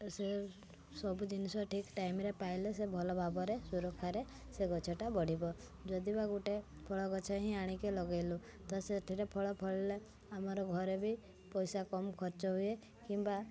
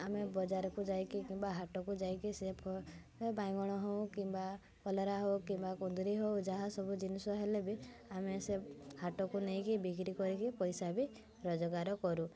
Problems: constant background noise, continuous background conversations